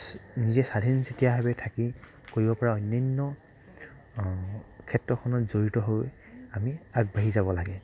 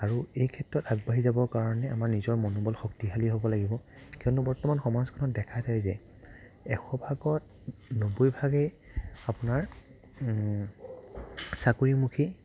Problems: background sounds at intervals, low volume